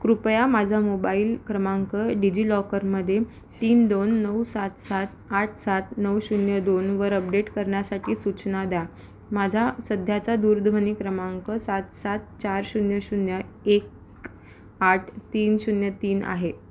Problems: background sounds at intervals